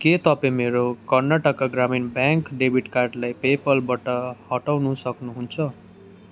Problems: constant background noise